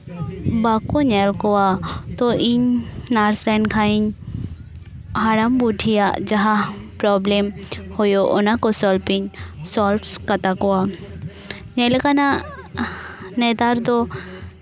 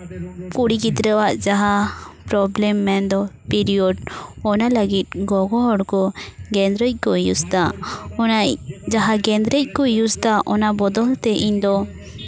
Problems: background conversations at intervals